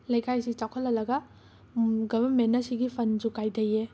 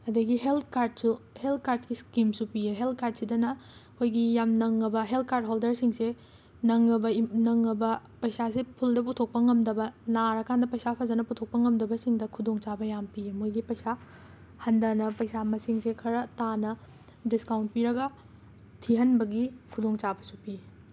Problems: constant background noise